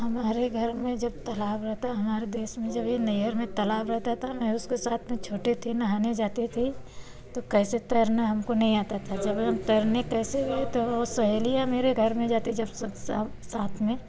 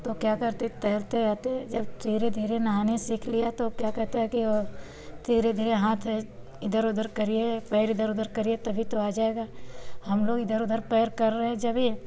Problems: constant background noise